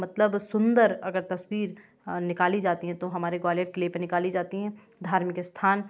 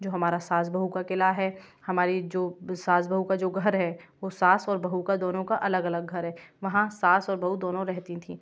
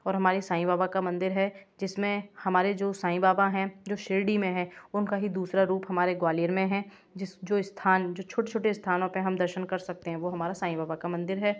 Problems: none marked